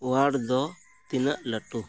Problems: none marked